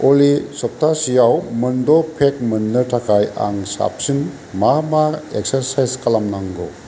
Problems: constant background noise